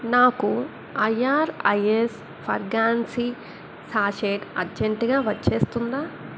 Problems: constant background noise